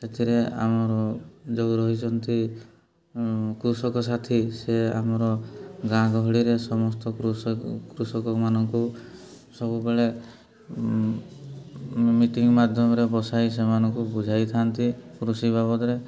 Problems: background sounds at intervals